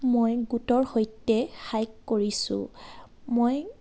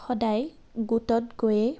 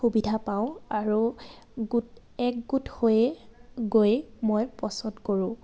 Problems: constant background noise, background conversations at intervals